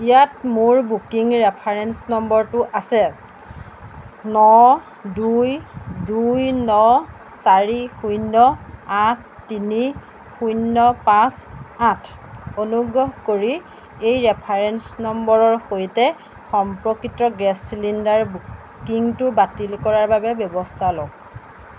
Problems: none marked